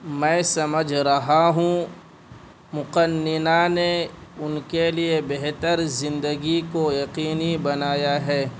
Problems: constant background noise